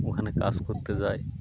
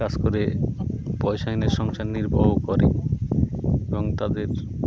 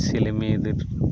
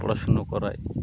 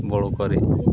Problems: constant background noise, continuous background conversations